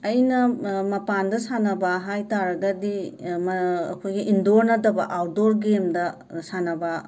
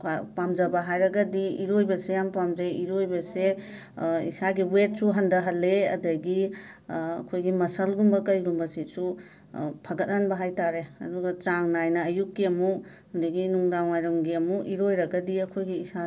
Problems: background conversations at intervals